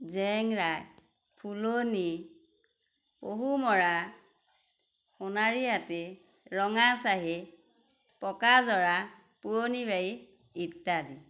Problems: constant background noise